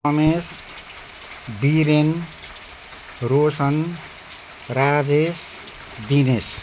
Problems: none marked